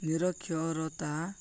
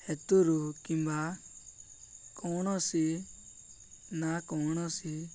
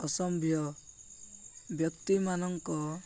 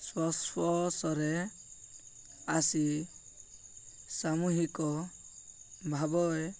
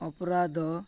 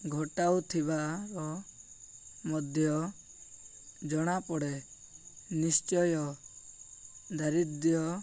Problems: none marked